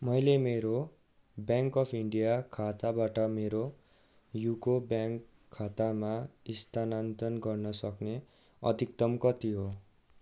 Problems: background sounds at intervals